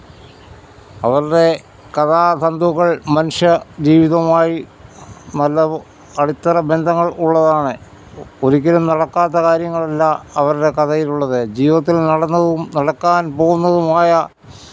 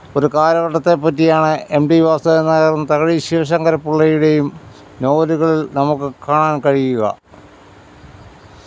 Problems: background conversations at intervals